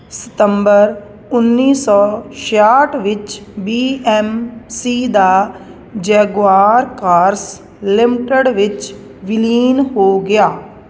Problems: constant background noise